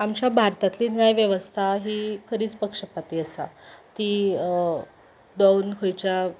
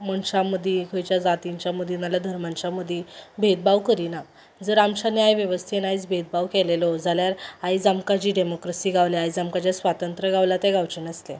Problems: none marked